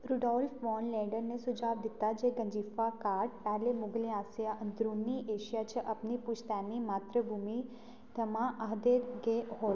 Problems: low volume